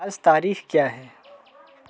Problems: constant background noise, continuous background conversations